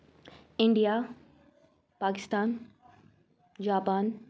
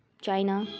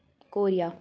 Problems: none marked